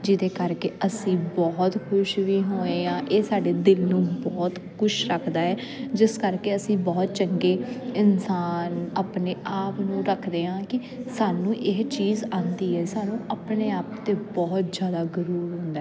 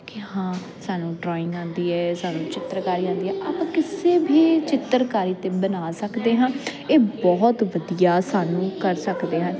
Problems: constant background noise